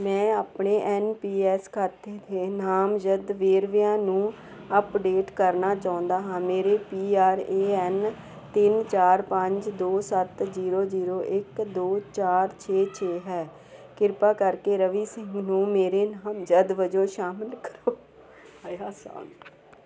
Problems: none marked